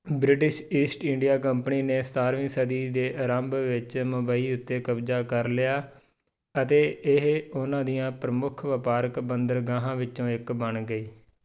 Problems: none marked